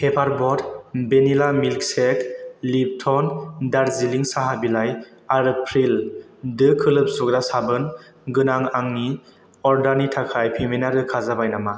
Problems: none marked